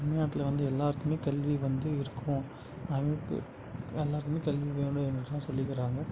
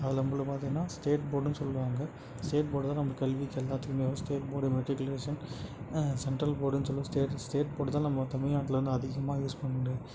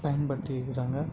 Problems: none marked